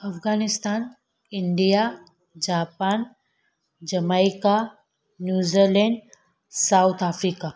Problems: none marked